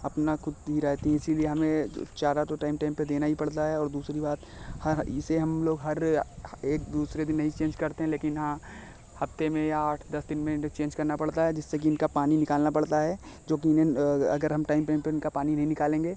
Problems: constant background noise